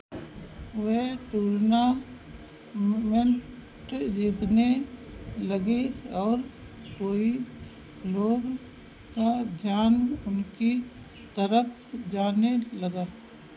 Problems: none marked